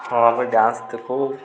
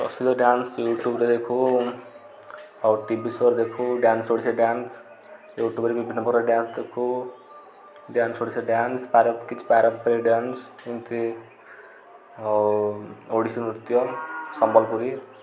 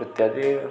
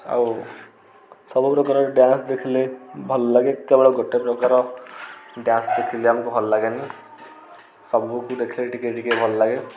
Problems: none marked